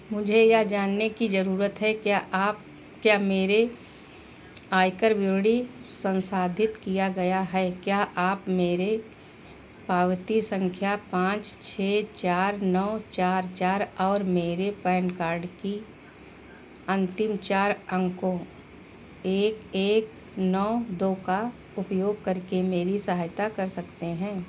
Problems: none marked